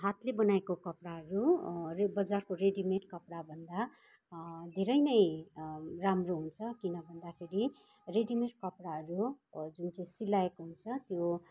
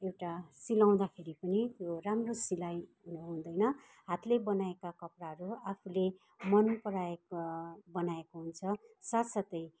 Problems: background sounds at intervals, background conversations at intervals